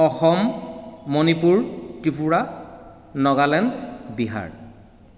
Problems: echo